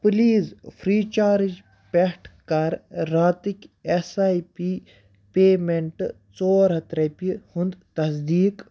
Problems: background sounds at intervals